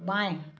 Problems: background sounds at intervals